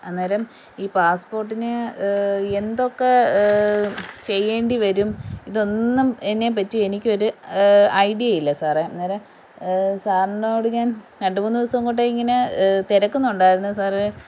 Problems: background sounds at intervals